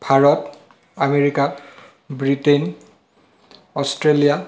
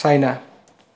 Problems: none marked